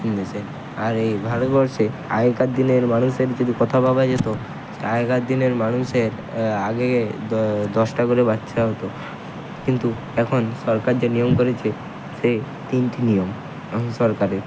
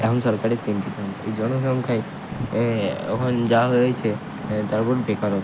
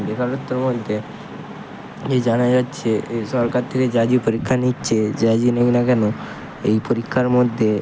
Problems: constant background noise